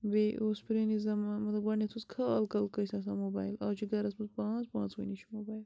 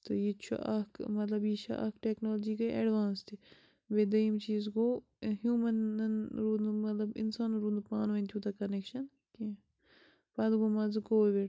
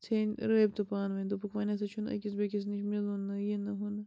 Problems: constant background noise